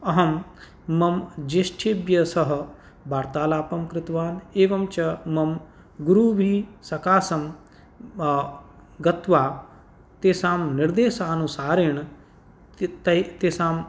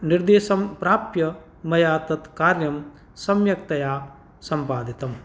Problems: none marked